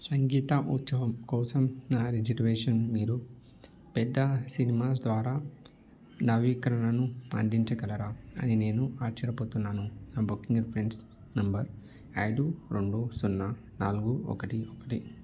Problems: none marked